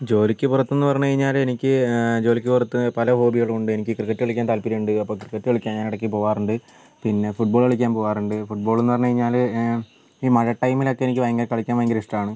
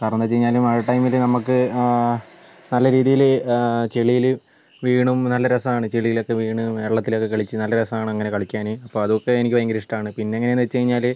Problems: constant background noise